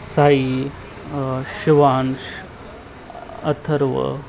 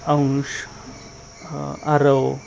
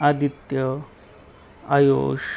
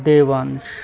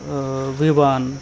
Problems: none marked